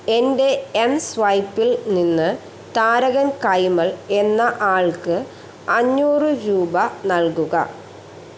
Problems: constant background noise